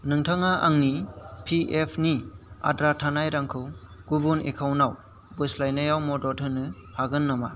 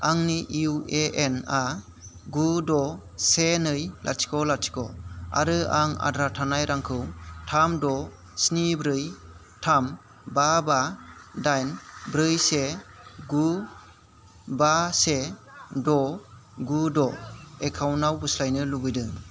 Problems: constant background noise